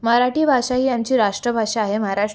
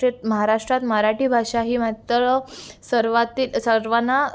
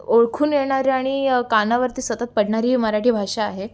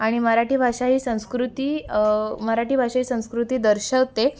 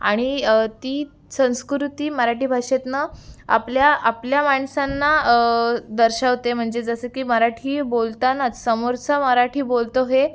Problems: none marked